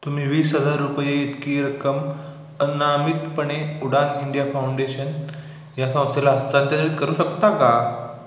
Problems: echo